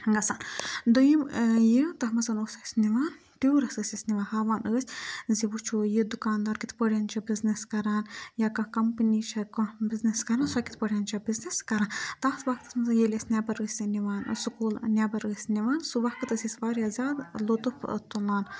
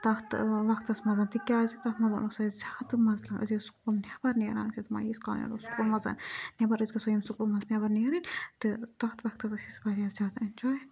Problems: background sounds at intervals, background conversations at intervals